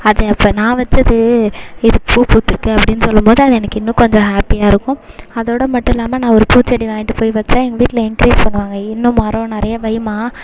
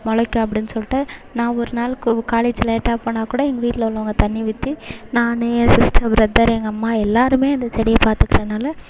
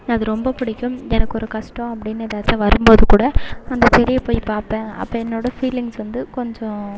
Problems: background sounds at intervals